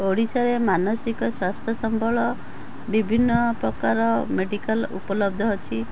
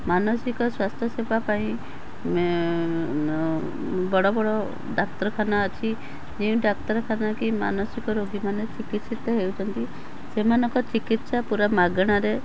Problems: constant background noise